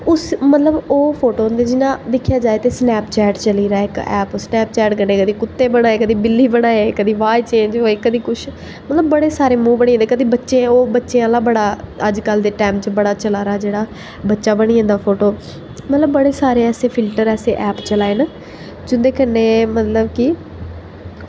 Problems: echo